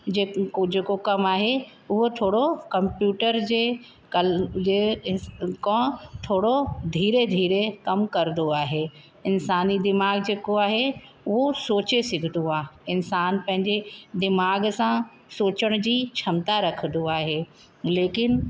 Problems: constant background noise, echo